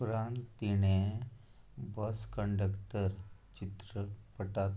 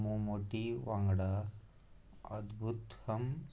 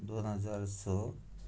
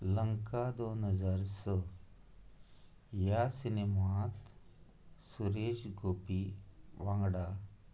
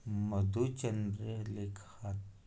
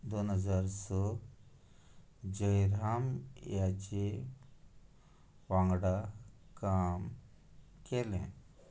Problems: none marked